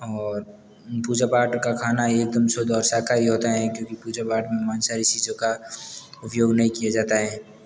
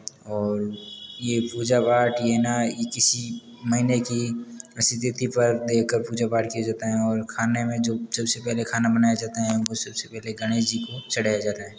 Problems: background sounds at intervals